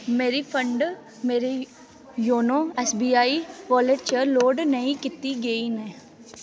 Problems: constant background noise